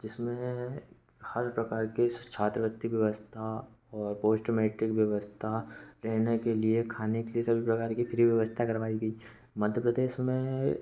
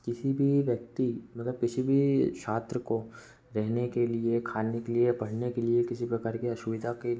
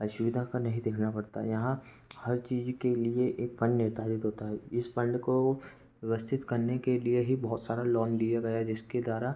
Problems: background sounds at intervals, background conversations at intervals